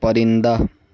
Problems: none marked